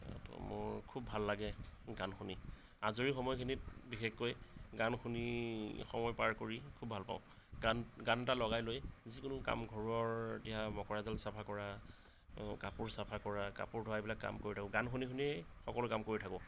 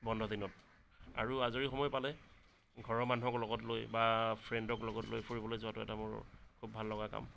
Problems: none marked